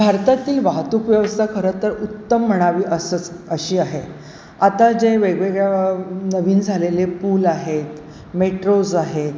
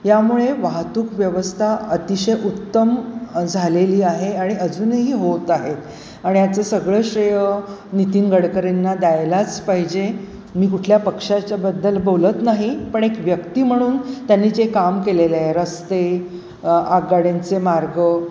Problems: none marked